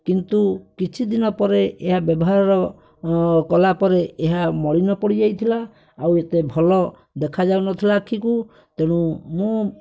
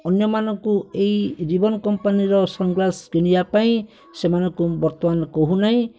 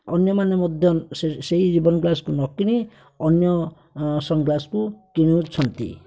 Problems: background sounds at intervals